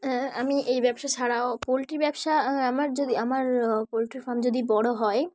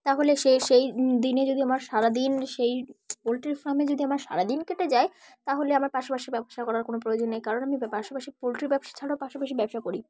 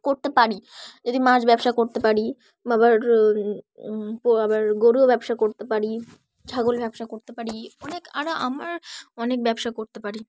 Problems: background sounds at intervals, background conversations at intervals